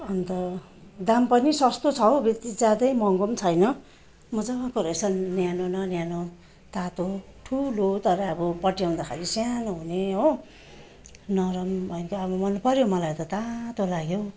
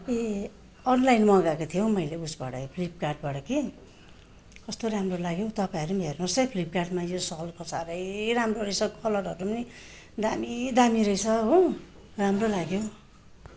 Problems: constant background noise